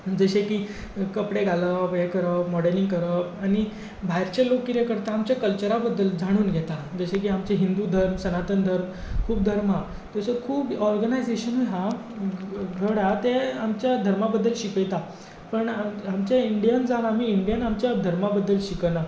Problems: background sounds at intervals